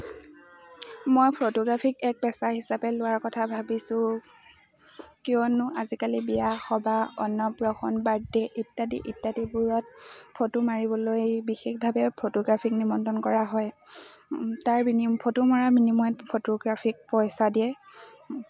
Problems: constant background noise, continuous background conversations